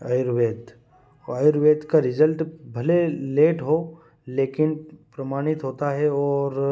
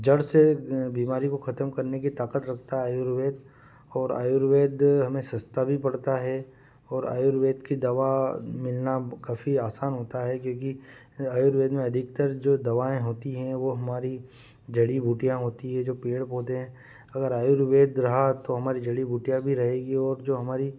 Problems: none marked